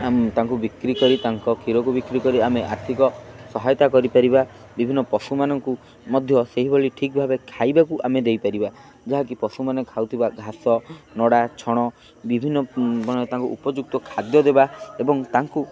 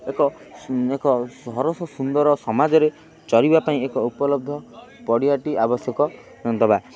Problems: constant background noise